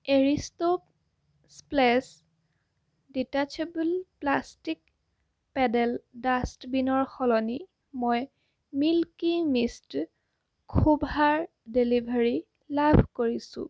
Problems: constant background noise